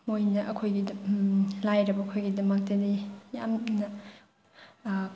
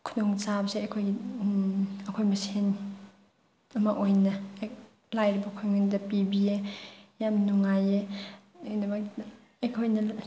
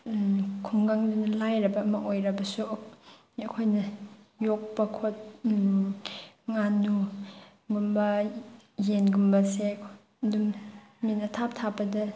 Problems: background sounds at intervals